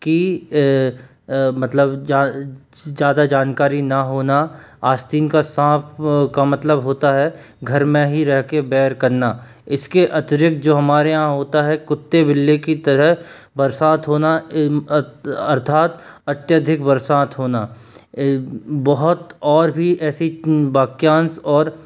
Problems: constant background noise